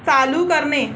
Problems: constant background noise